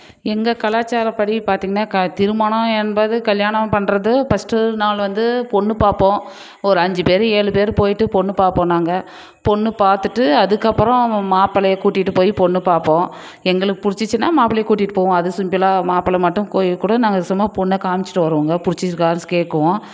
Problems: none marked